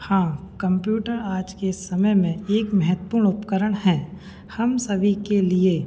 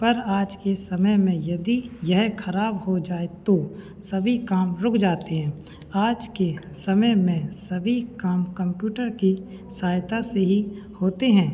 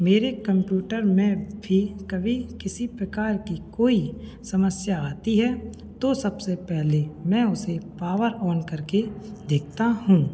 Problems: none marked